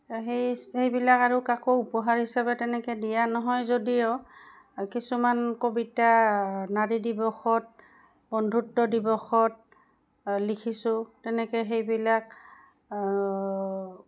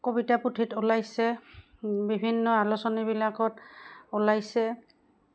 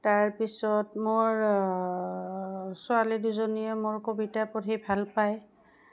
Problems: background sounds at intervals